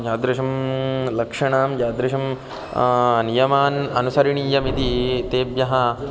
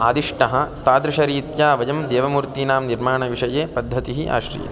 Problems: constant background noise, continuous background conversations